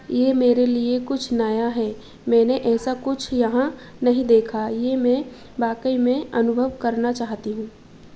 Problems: constant background noise